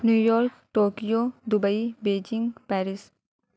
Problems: none marked